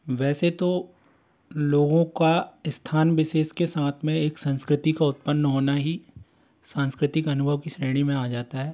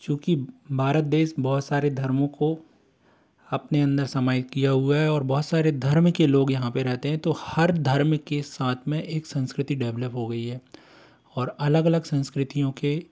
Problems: constant background noise